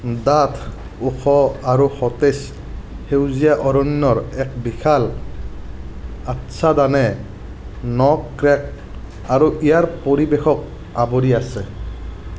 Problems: background sounds at intervals